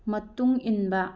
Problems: low volume